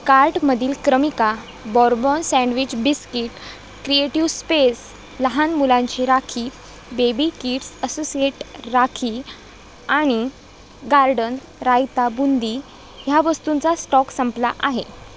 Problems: none marked